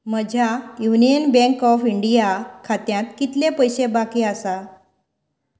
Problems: background conversations at intervals